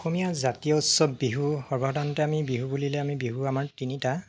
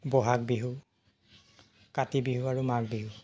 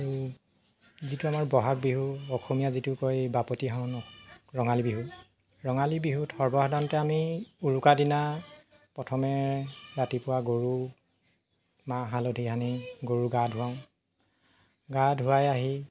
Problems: constant background noise